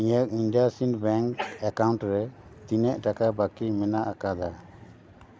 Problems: constant background noise, background conversations at intervals